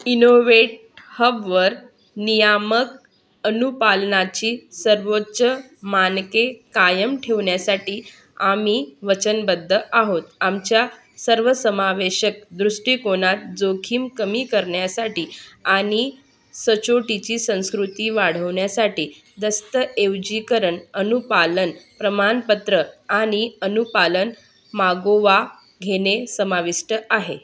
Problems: none marked